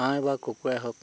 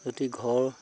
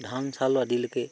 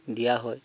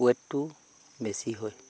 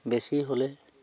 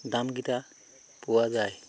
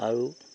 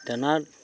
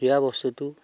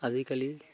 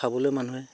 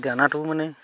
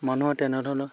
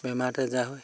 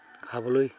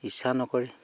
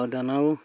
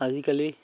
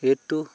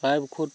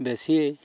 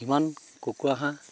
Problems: none marked